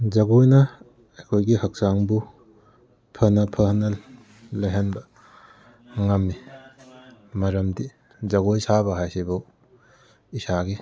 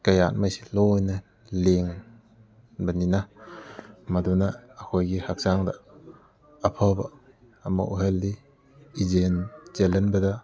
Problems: background conversations at intervals